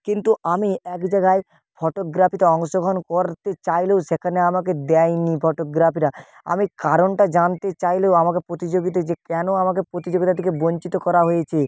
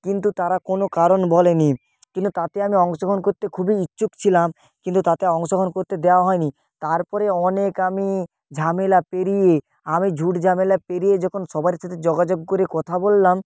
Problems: background sounds at intervals